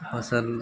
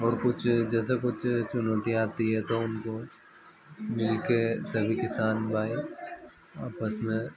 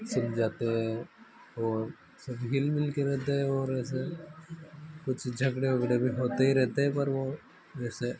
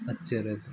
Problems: none marked